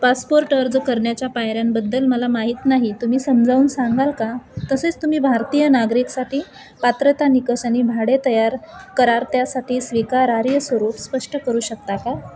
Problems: constant background noise, continuous background conversations